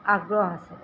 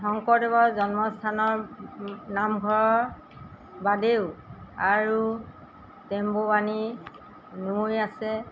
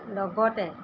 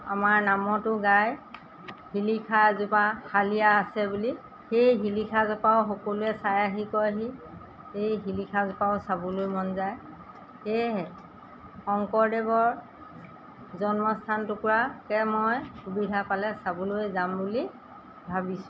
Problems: background sounds at intervals